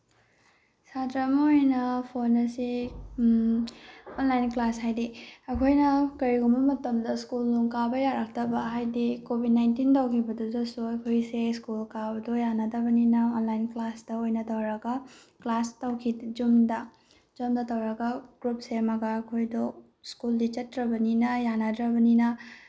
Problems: background sounds at intervals